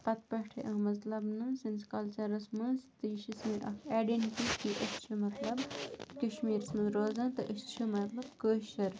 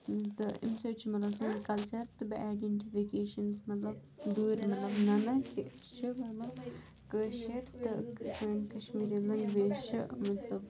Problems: background sounds at intervals, continuous background conversations